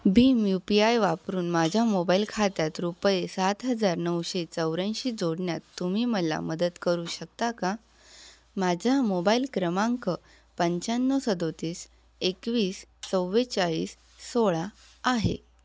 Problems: constant background noise